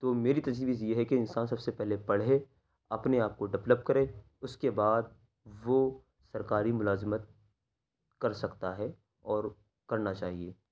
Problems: none marked